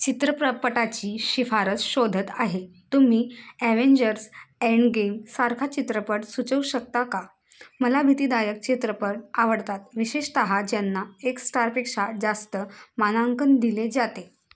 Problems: constant background noise